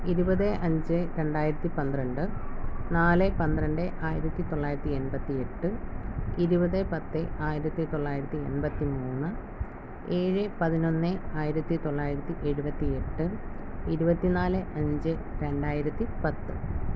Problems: none marked